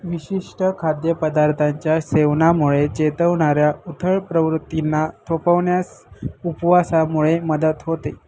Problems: constant background noise